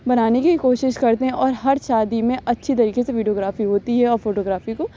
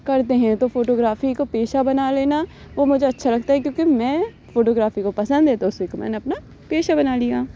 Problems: none marked